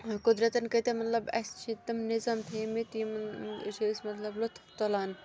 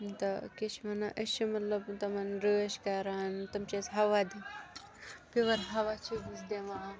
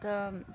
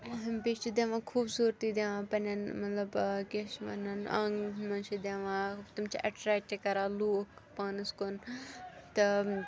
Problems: constant background noise, continuous background conversations